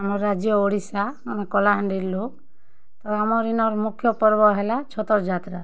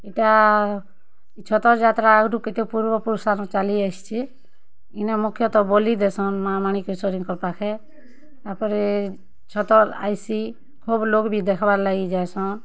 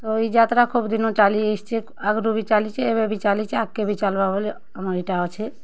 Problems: none marked